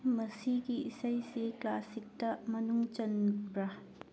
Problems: low volume